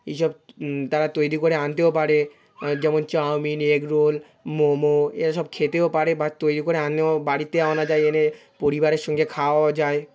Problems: continuous background conversations